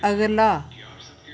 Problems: none marked